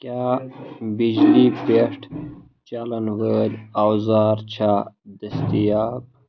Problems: constant background noise